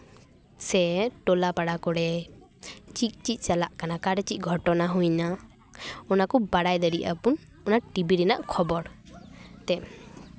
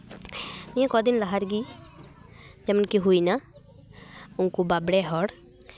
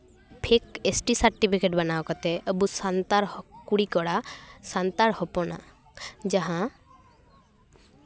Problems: background sounds at intervals